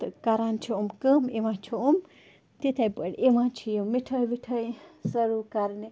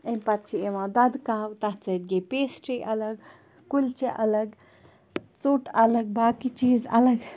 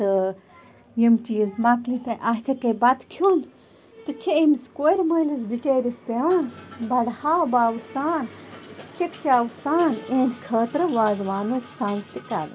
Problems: constant background noise